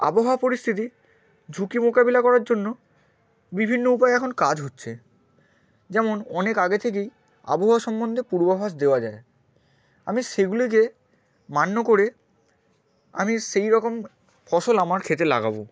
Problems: none marked